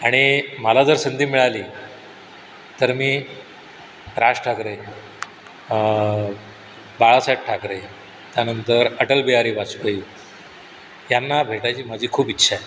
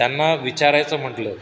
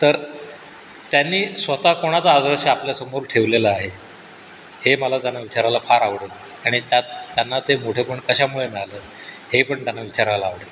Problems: none marked